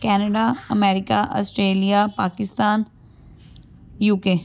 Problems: none marked